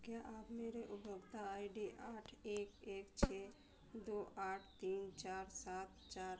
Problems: constant background noise, low volume